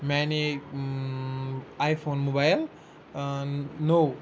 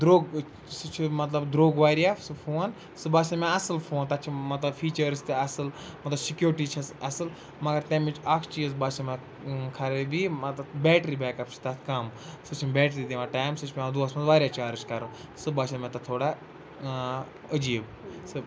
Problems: none marked